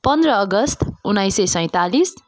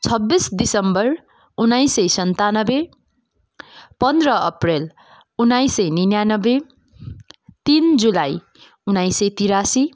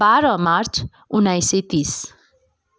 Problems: none marked